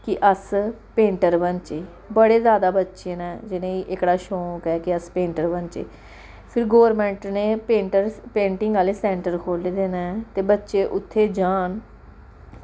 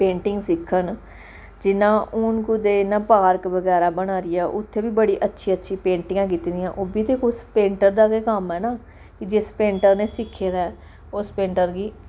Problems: background sounds at intervals